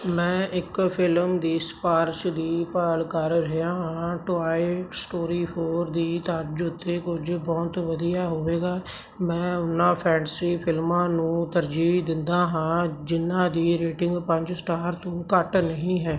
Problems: none marked